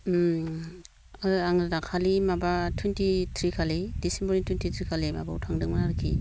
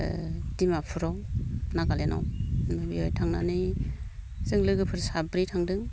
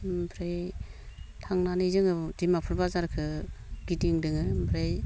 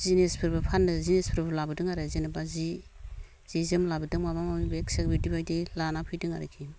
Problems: low volume